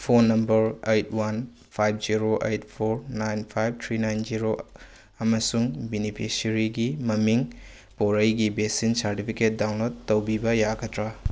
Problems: none marked